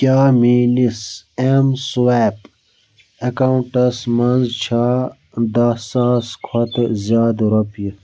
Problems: background sounds at intervals